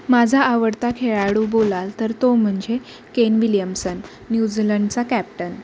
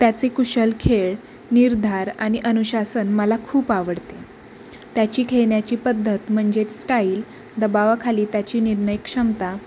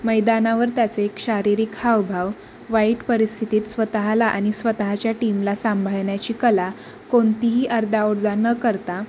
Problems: constant background noise